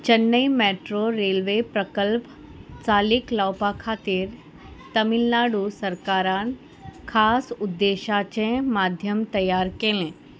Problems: none marked